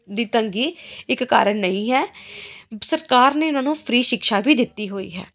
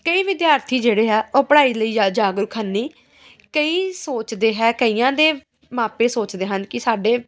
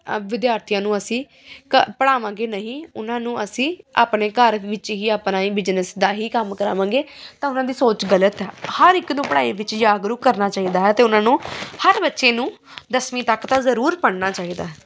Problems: background sounds at intervals